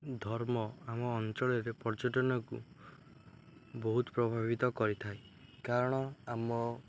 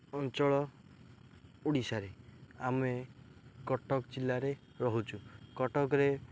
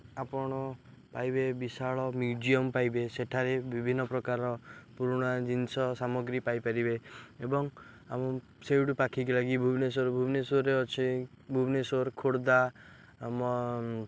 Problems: none marked